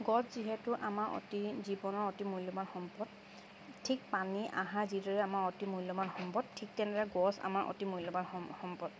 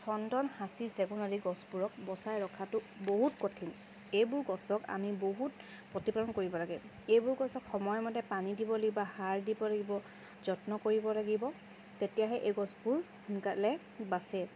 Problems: constant background noise